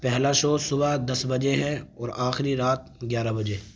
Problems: none marked